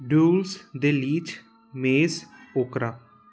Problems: constant background noise